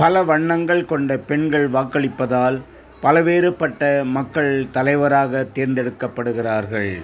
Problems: constant background noise